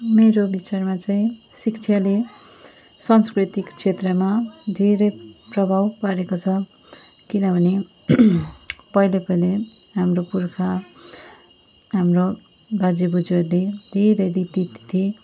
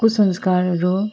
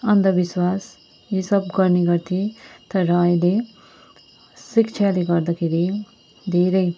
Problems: constant background noise